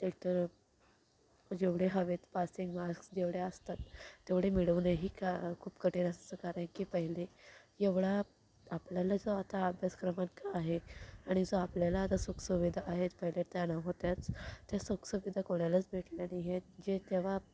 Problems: background sounds at intervals, low volume